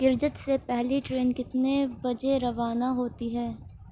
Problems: constant background noise